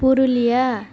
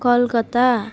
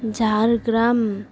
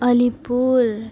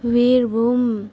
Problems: constant background noise